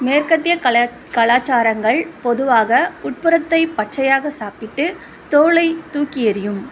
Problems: none marked